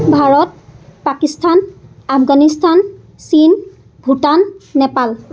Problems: constant background noise